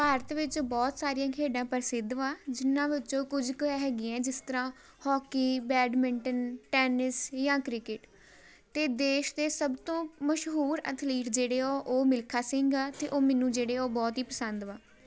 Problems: background sounds at intervals